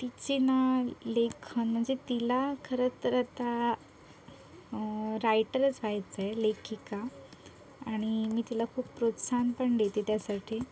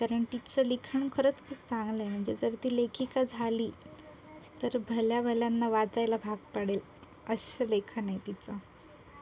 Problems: constant background noise, continuous background conversations